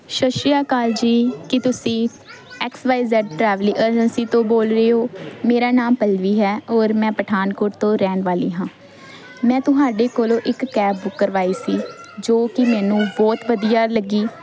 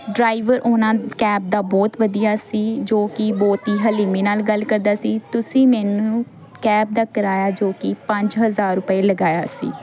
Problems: none marked